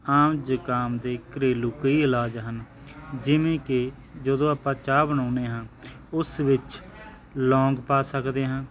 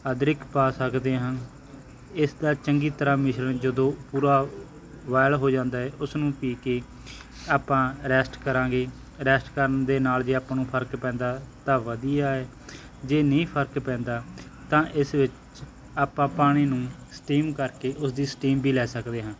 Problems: background sounds at intervals